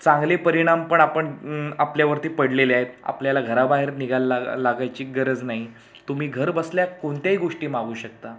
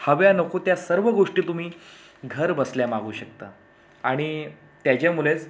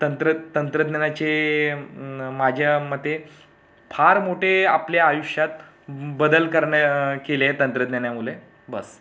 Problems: none marked